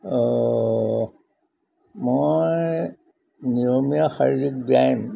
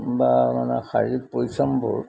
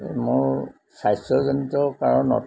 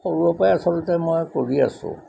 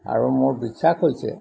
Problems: background sounds at intervals